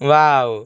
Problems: constant background noise